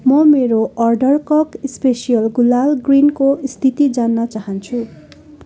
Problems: continuous background conversations